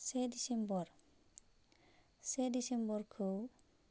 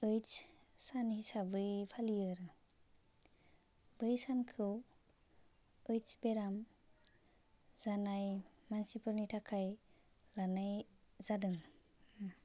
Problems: constant background noise